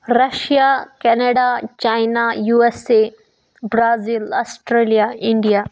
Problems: none marked